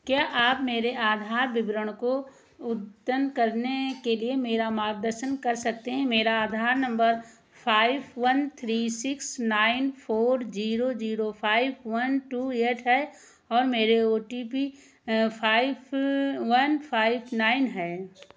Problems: none marked